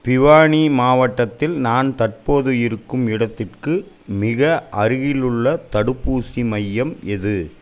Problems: none marked